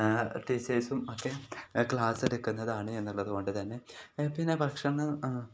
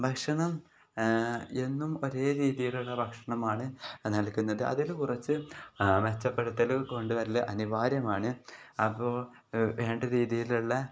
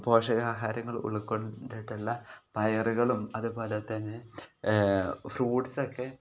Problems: none marked